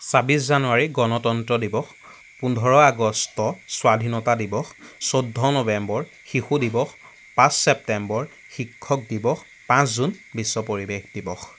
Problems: constant background noise